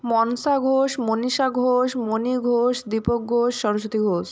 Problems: none marked